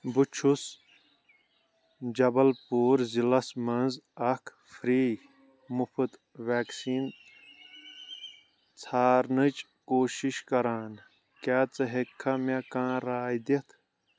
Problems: none marked